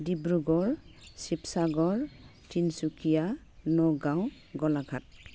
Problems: none marked